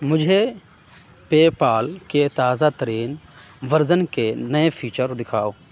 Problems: constant background noise